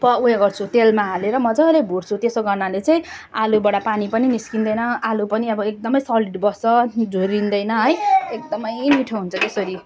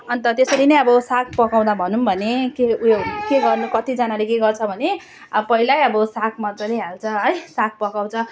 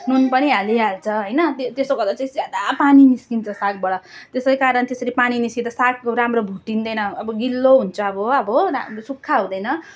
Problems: constant background noise